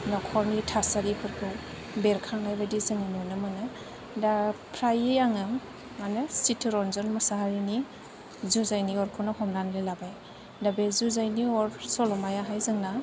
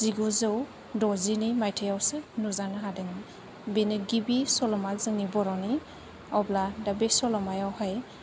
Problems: low volume